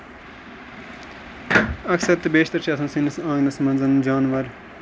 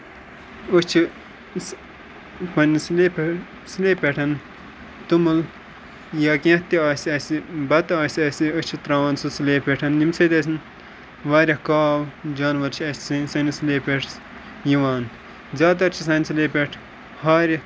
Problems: constant background noise